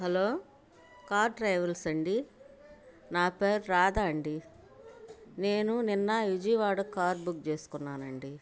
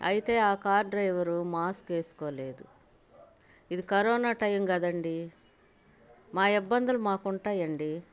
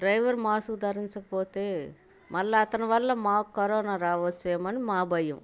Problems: none marked